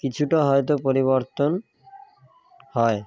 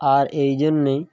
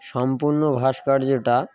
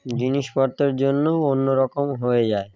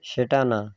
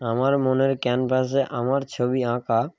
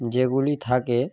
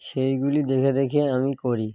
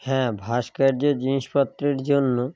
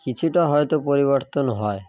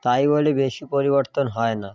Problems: background sounds at intervals